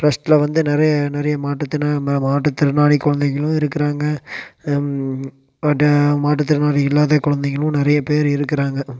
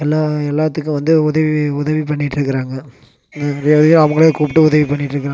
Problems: constant background noise